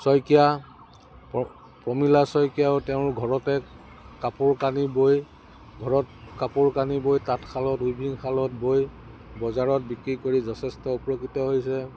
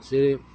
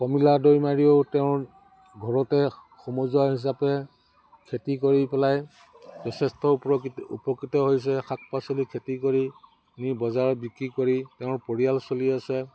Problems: background sounds at intervals